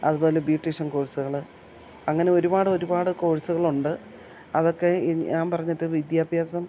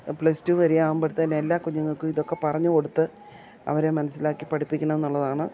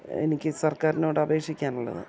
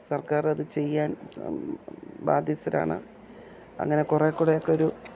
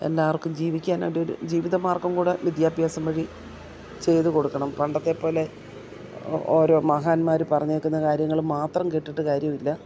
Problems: none marked